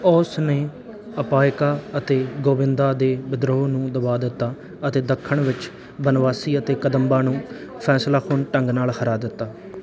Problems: background sounds at intervals